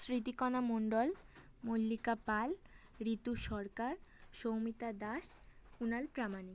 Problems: constant background noise